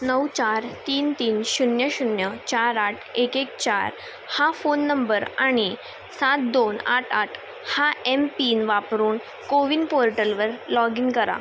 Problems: none marked